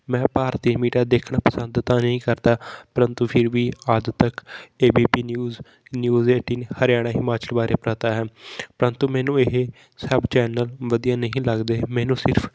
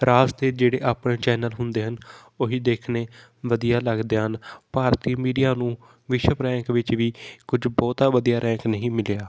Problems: constant background noise